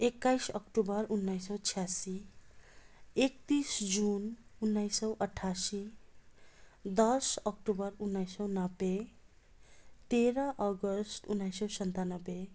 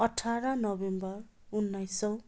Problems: constant background noise